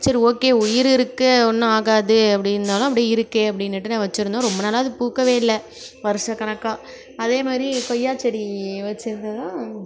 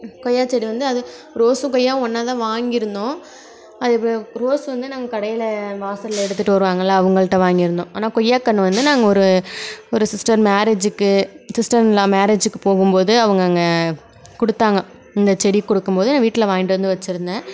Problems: background sounds at intervals